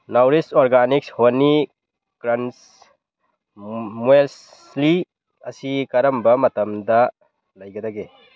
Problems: background sounds at intervals